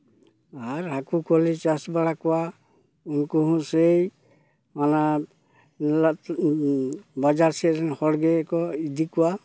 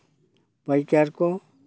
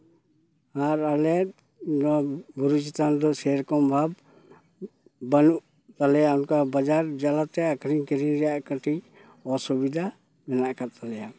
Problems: none marked